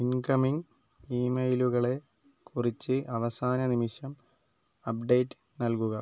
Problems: low volume